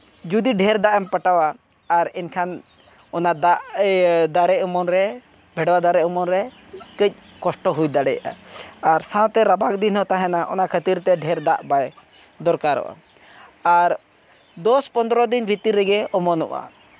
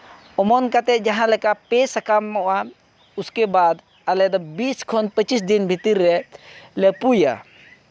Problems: none marked